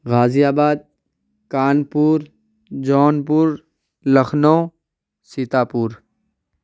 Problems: none marked